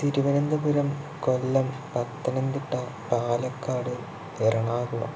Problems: constant background noise